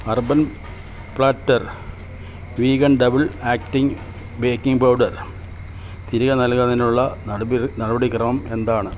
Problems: none marked